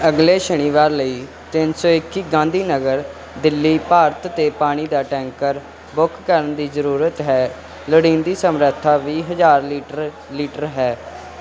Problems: none marked